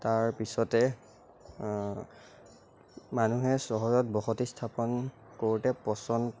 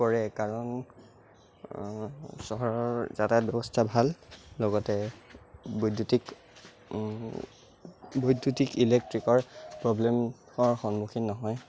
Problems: none marked